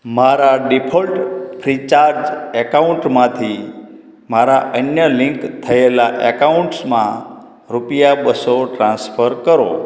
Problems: background conversations at intervals